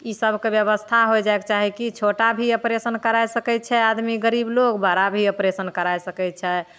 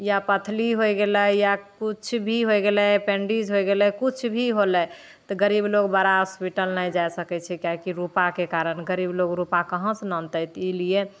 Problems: none marked